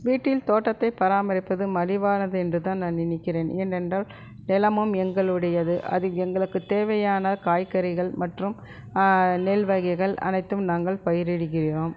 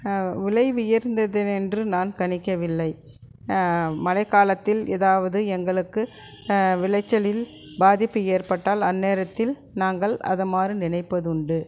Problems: background sounds at intervals, continuous background conversations